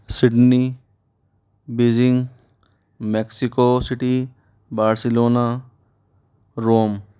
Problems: background sounds at intervals